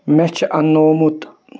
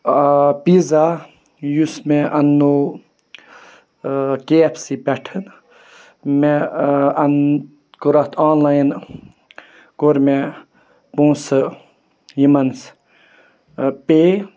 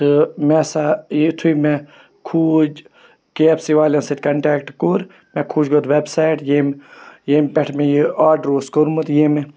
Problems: continuous background conversations